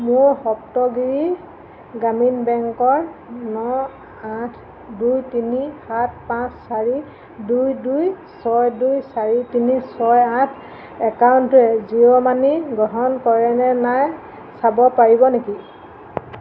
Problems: none marked